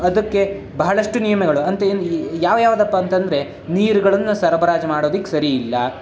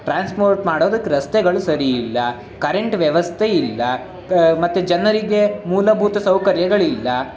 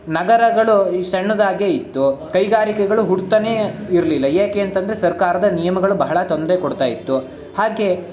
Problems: none marked